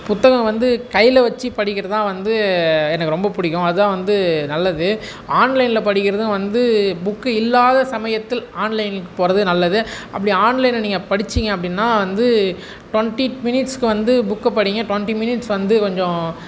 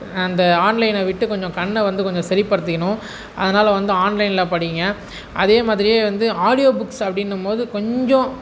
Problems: background sounds at intervals